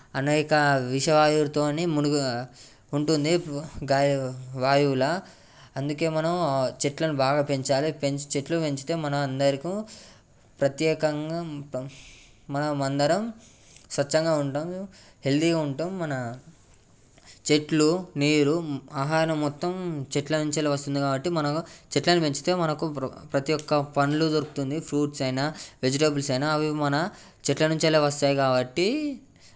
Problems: background sounds at intervals